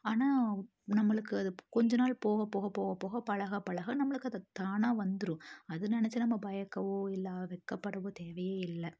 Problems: none marked